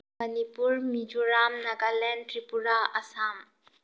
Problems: low volume